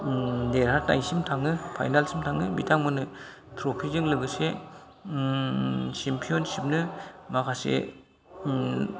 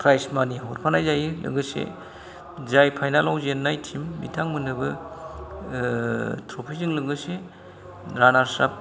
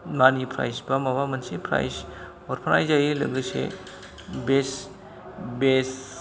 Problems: low volume